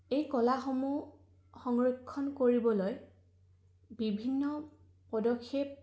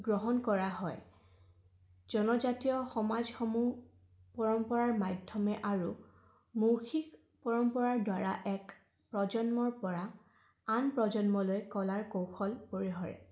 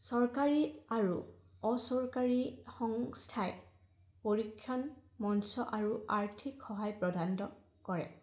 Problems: background sounds at intervals